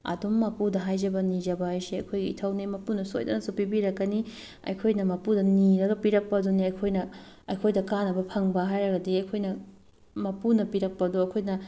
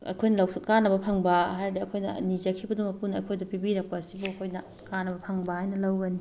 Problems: background sounds at intervals